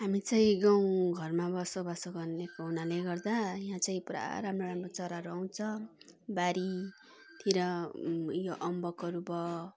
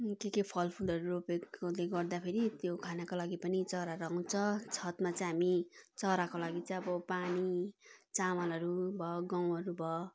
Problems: background conversations at intervals